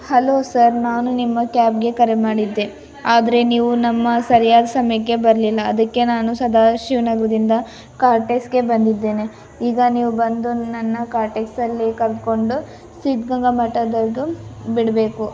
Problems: constant background noise